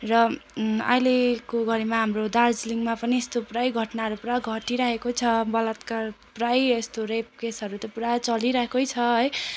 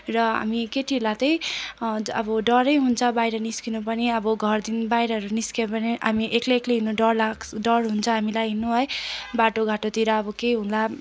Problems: constant background noise